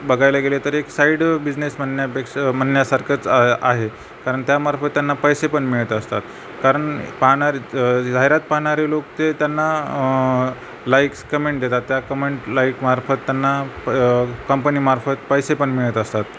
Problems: none marked